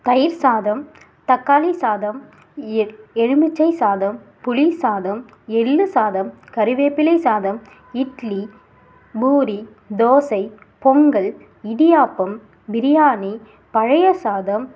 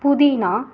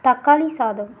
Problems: none marked